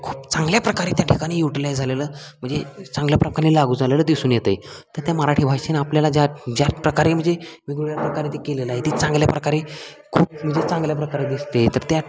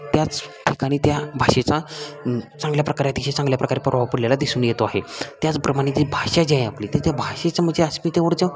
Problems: constant background noise, continuous background conversations